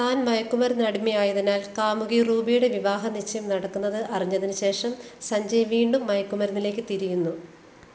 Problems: constant background noise